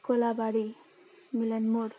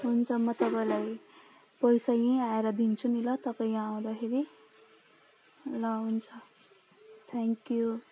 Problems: low volume